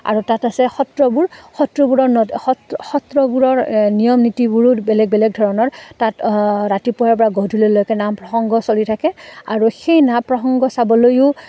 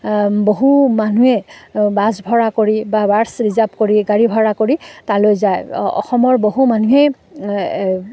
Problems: none marked